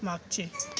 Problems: constant background noise, continuous background conversations